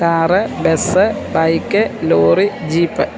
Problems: constant background noise